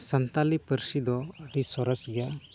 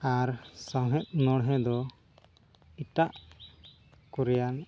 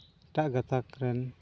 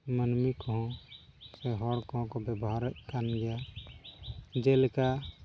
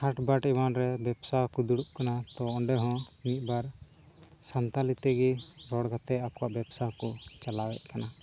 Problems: constant background noise